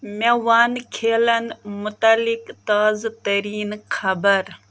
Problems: background sounds at intervals